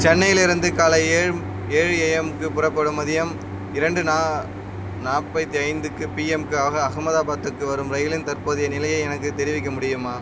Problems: constant background noise